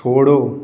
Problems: background sounds at intervals